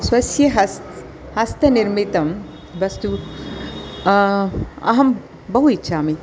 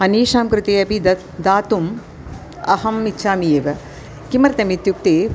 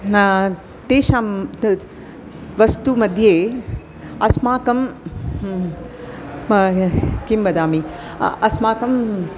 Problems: constant background noise, continuous background conversations